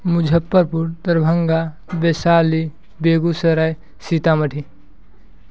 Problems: none marked